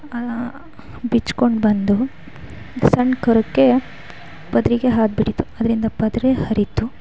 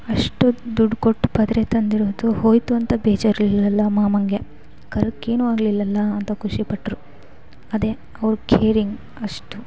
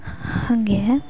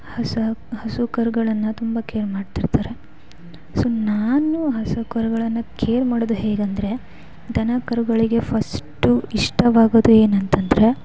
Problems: background sounds at intervals, background conversations at intervals